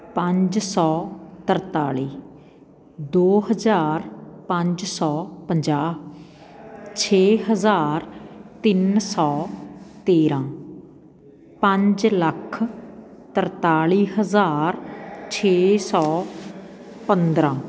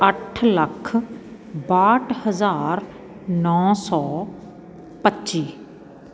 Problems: continuous background conversations